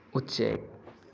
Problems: low volume